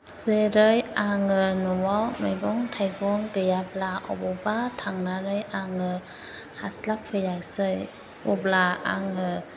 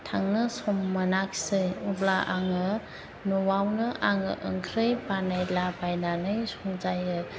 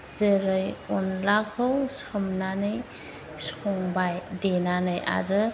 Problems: constant background noise